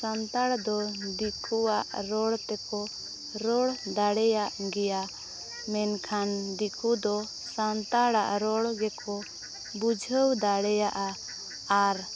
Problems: background sounds at intervals